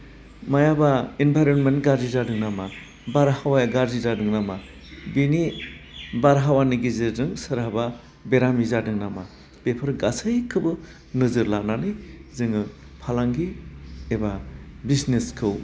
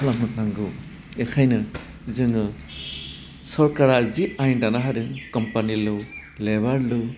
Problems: constant background noise